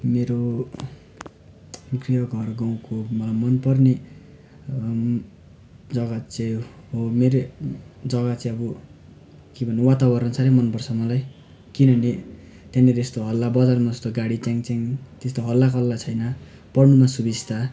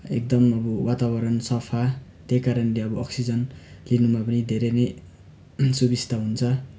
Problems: constant background noise